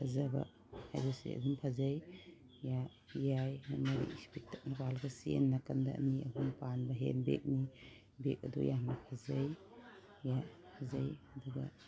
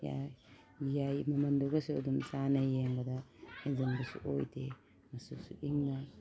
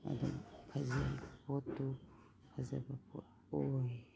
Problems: background sounds at intervals